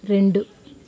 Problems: constant background noise